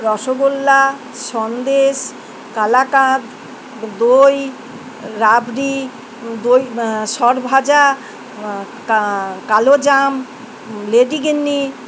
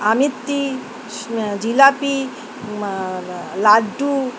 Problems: none marked